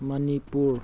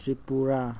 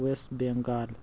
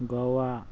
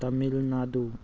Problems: constant background noise